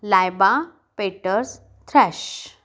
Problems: background sounds at intervals